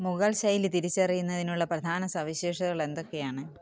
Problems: background conversations at intervals